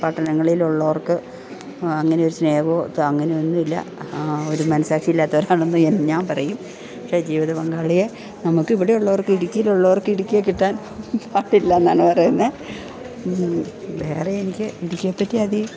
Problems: background sounds at intervals